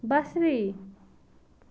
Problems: none marked